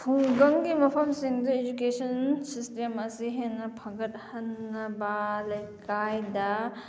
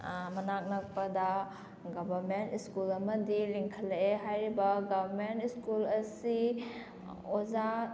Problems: background sounds at intervals, background conversations at intervals